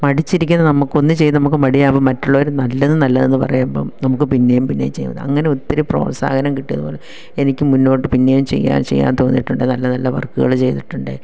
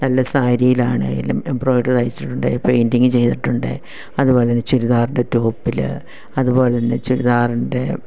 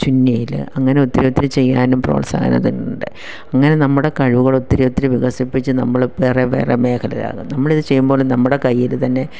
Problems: none marked